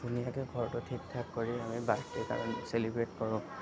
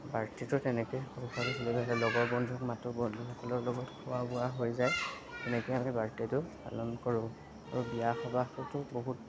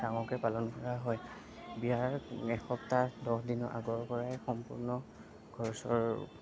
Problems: background sounds at intervals, background conversations at intervals